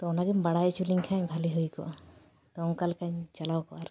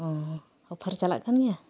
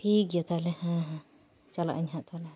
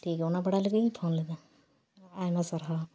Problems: background sounds at intervals